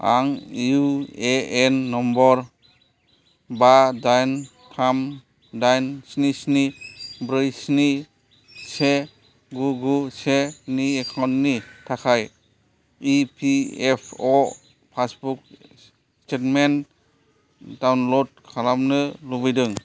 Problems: none marked